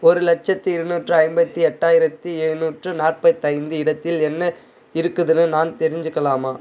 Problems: background conversations at intervals